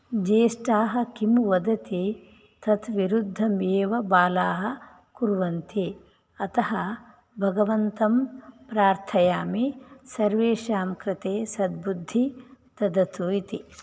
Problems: none marked